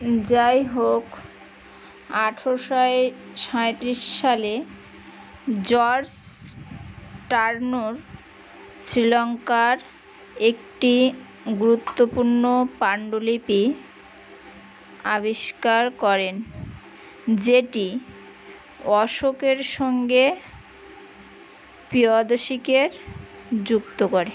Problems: none marked